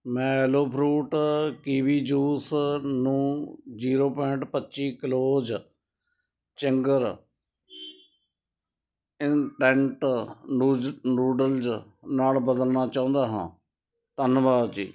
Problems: none marked